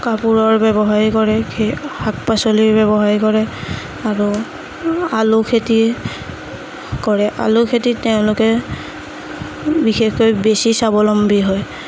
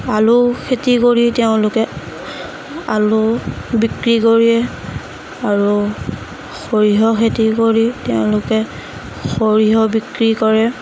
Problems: none marked